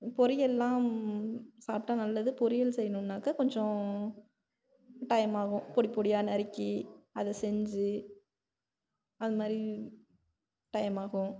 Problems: none marked